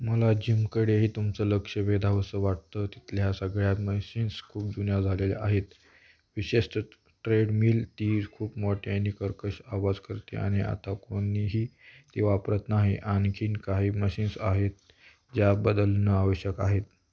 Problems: background sounds at intervals